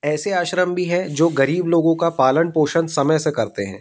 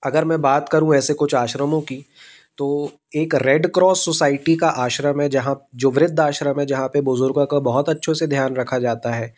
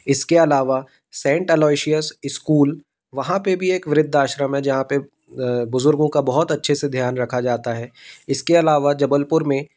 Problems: constant background noise